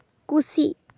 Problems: none marked